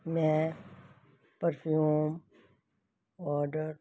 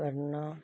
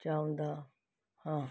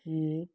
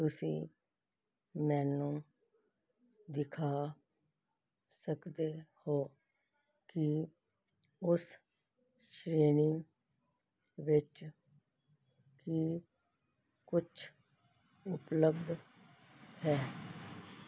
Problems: background sounds at intervals